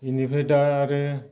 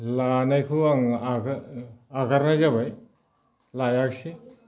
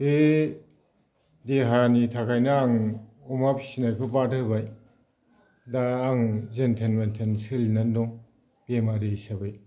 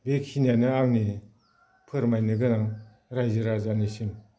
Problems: constant background noise